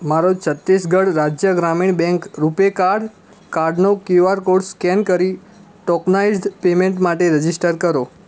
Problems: constant background noise